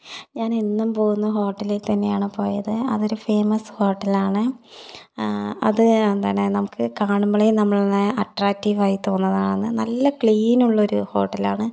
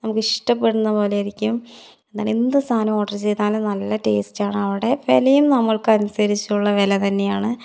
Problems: none marked